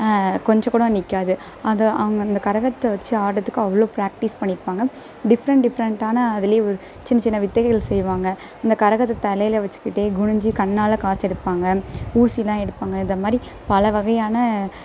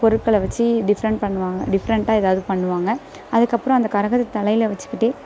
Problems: none marked